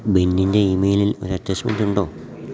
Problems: constant background noise